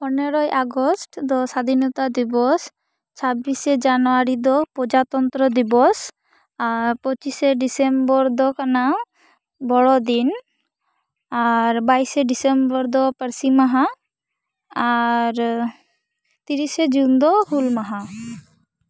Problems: background sounds at intervals